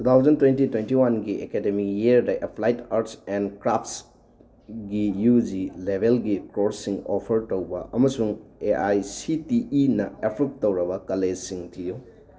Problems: background conversations at intervals